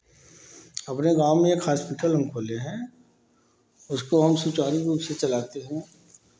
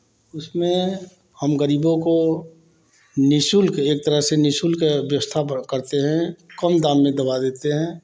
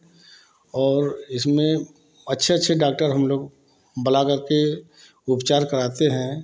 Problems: constant background noise